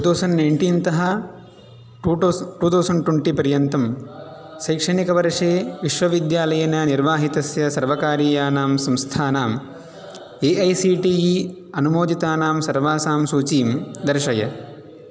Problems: echo